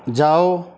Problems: background sounds at intervals